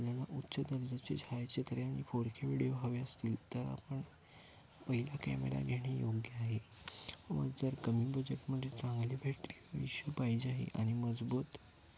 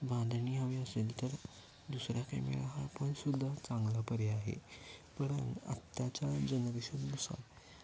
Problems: constant background noise